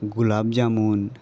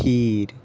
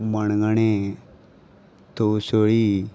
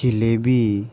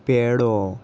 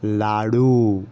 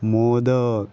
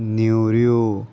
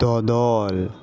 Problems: constant background noise, background conversations at intervals